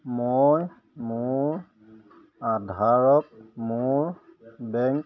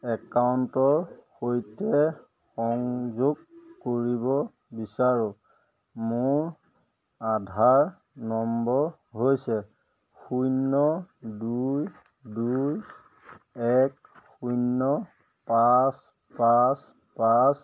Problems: none marked